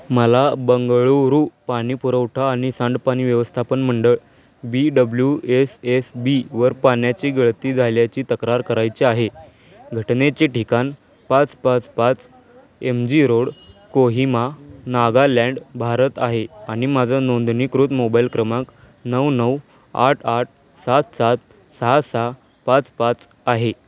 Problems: background conversations at intervals